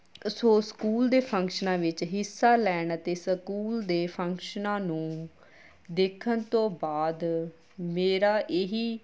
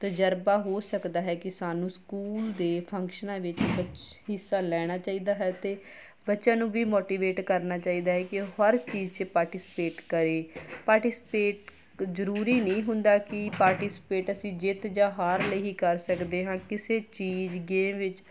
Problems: background sounds at intervals